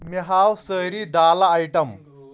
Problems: none marked